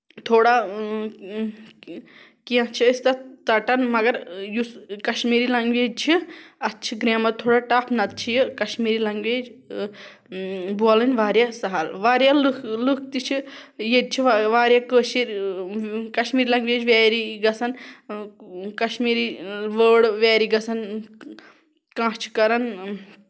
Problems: background sounds at intervals